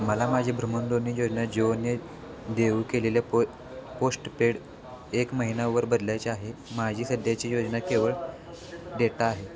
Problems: constant background noise, background conversations at intervals